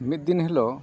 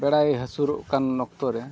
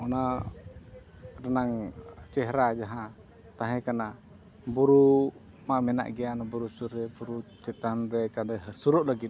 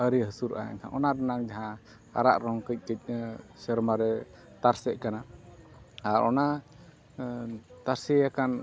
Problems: none marked